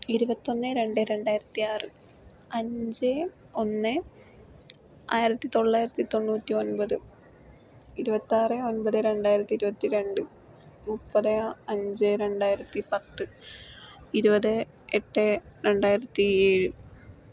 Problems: none marked